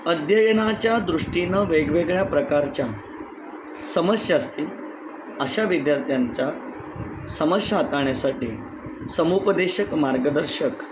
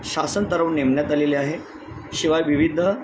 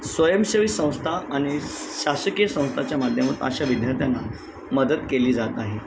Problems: constant background noise, continuous background conversations